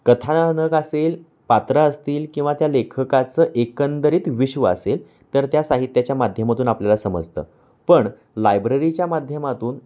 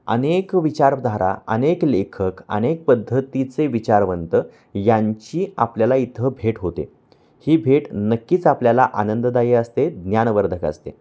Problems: background sounds at intervals